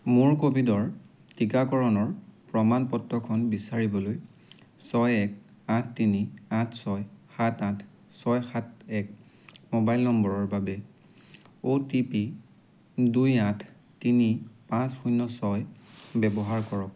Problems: constant background noise